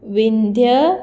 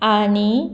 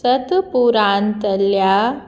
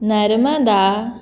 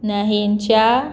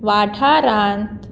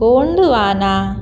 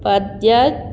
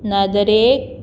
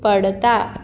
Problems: none marked